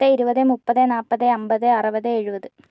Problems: none marked